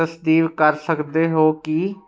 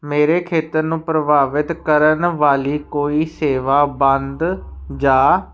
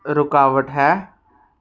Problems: background sounds at intervals